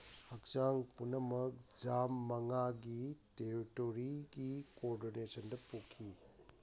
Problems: background sounds at intervals